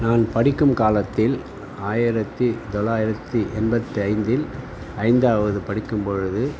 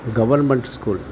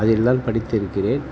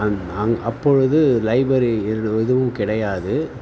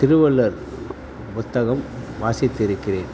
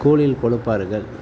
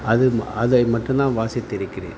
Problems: constant background noise